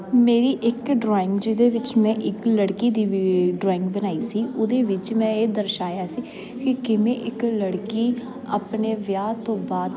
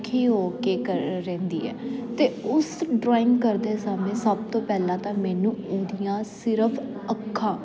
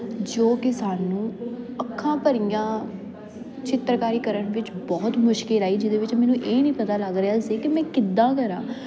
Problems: constant background noise